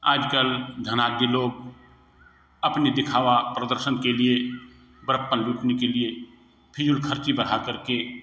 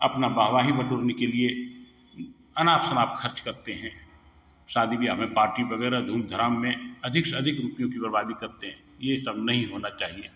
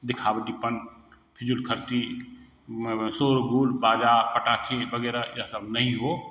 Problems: background sounds at intervals